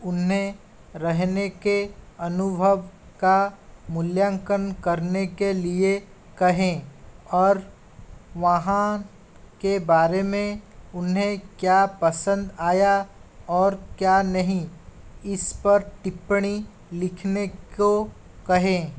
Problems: constant background noise